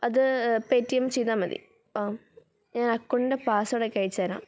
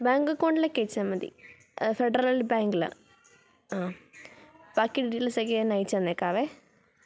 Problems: background sounds at intervals